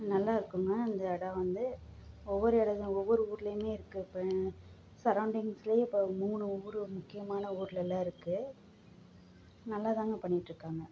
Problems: low volume